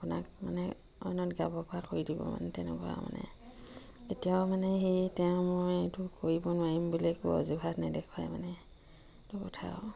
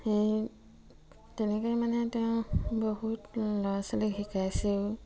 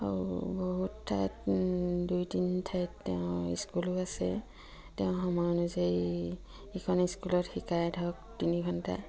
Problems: none marked